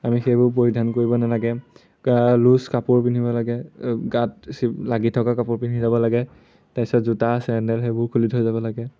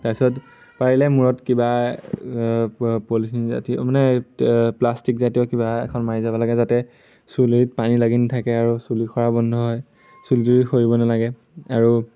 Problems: none marked